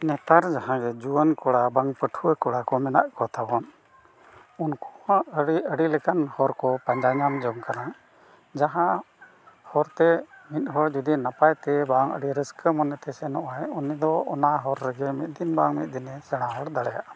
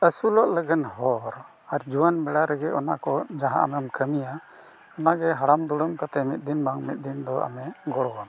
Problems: background sounds at intervals